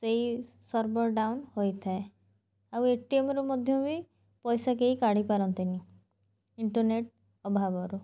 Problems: none marked